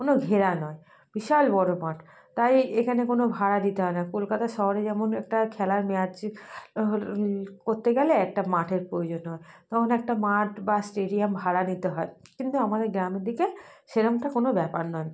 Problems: none marked